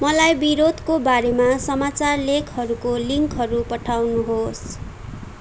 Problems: constant background noise